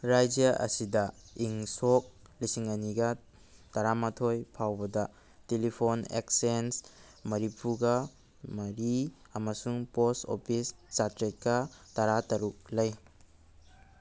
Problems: background sounds at intervals